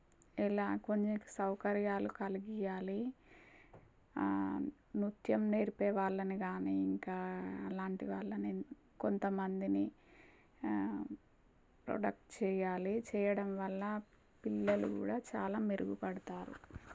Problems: none marked